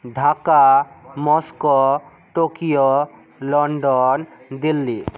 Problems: background conversations at intervals